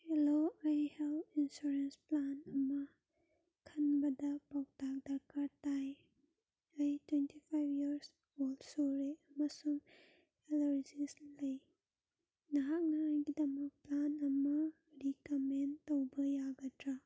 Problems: low volume